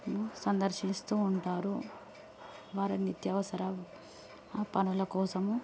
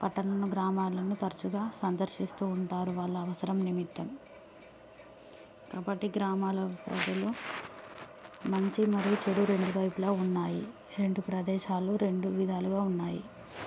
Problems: none marked